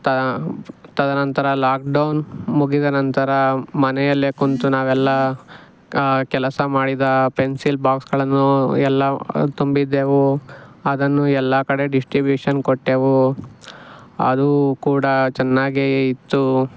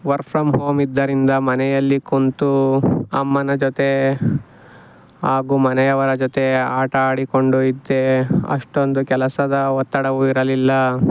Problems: background sounds at intervals